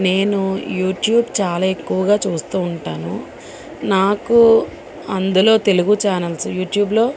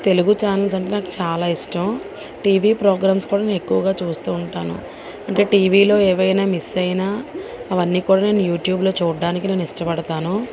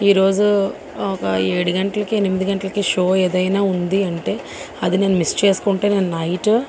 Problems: constant background noise, background conversations at intervals